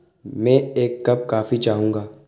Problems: constant background noise, echo